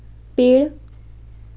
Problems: constant background noise